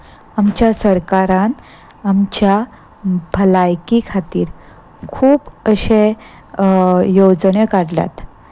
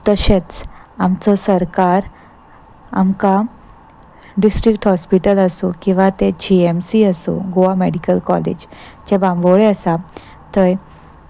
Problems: constant background noise